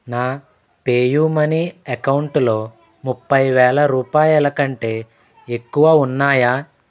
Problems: none marked